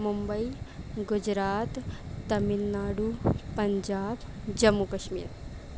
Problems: constant background noise